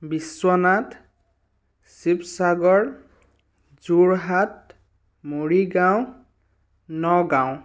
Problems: none marked